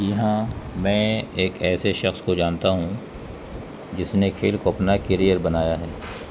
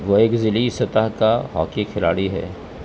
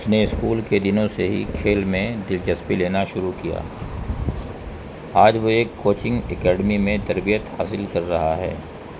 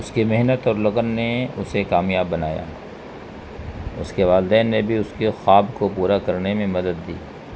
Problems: constant background noise